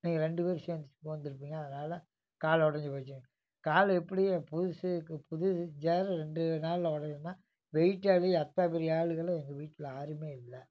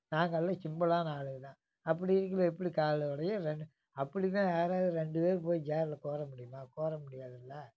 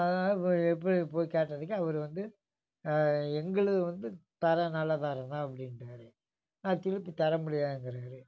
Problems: background sounds at intervals